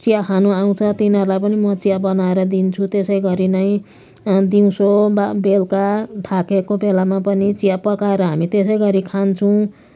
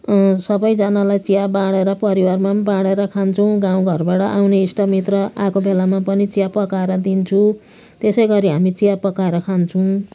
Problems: constant background noise